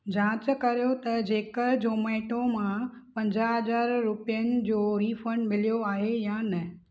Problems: none marked